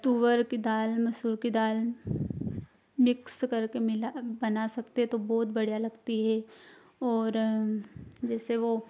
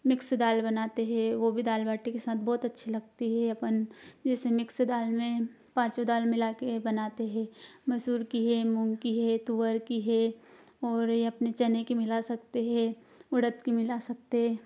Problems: constant background noise